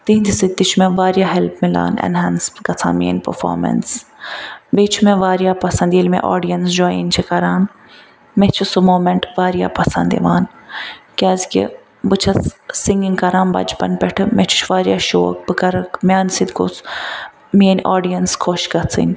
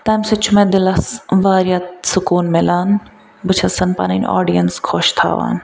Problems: background sounds at intervals